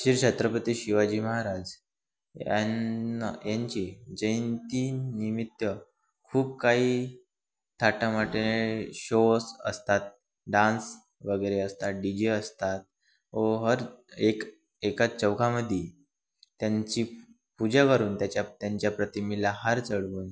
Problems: none marked